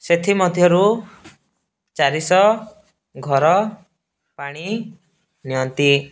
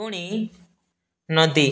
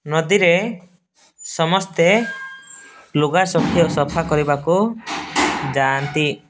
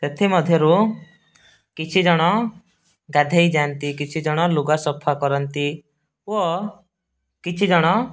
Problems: background sounds at intervals, background conversations at intervals